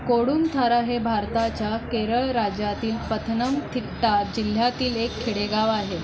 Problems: none marked